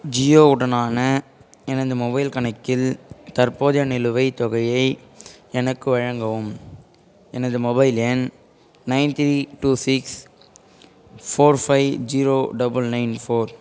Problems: background conversations at intervals